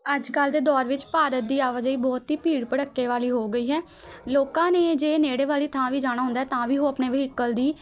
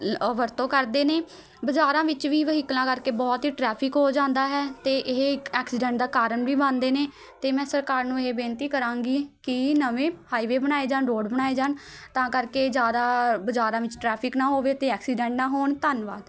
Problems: constant background noise, continuous background conversations